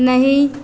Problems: none marked